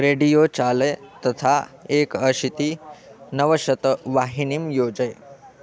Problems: continuous background conversations